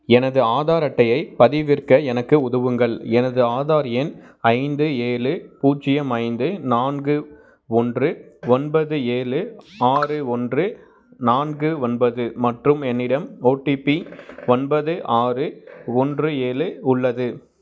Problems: background sounds at intervals